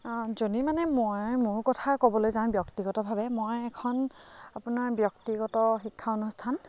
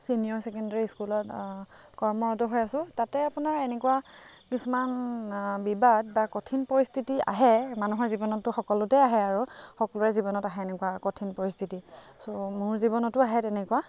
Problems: constant background noise, background conversations at intervals